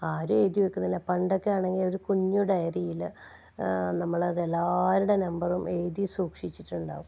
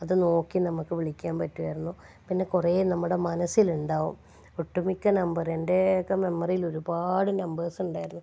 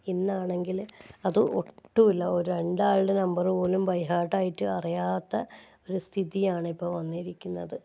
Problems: low volume